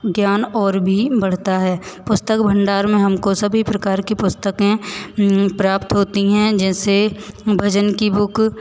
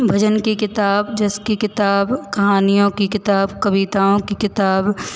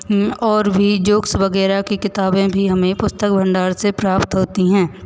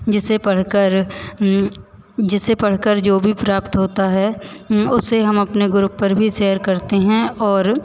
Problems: constant background noise, echo